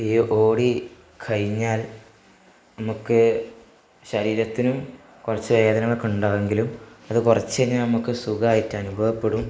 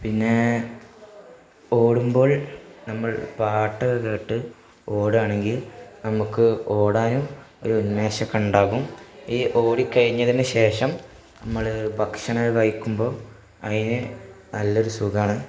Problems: background sounds at intervals